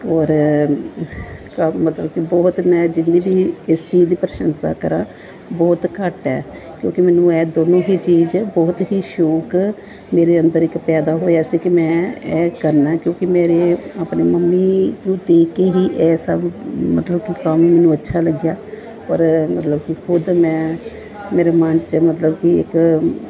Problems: background sounds at intervals, background conversations at intervals